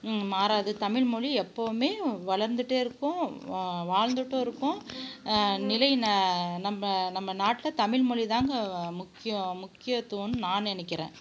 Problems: none marked